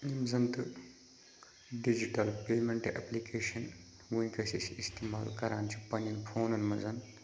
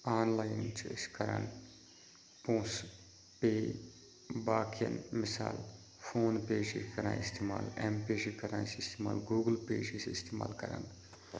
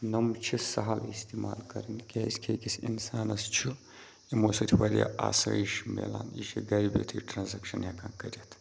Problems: constant background noise, background conversations at intervals